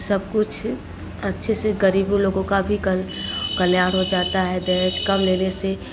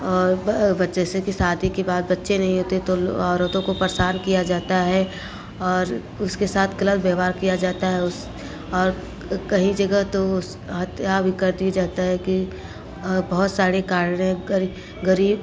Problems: none marked